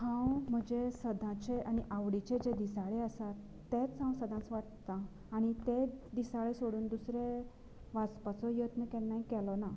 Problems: none marked